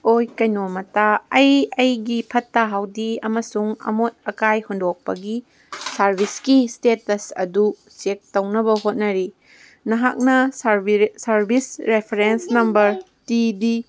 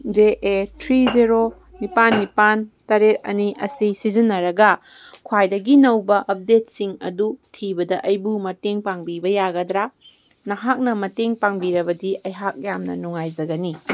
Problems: none marked